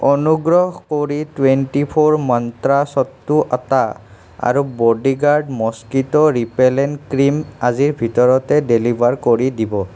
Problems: none marked